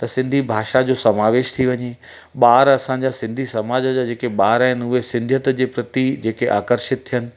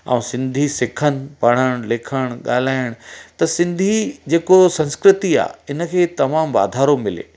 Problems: constant background noise